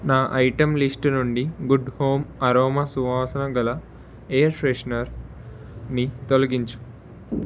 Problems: none marked